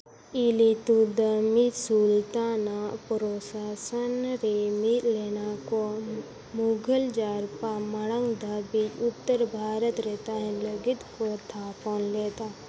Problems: constant background noise